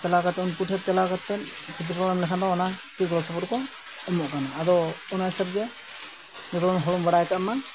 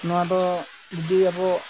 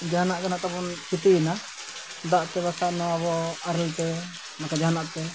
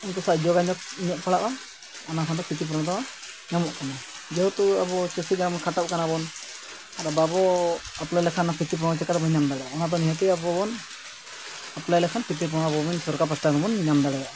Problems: constant background noise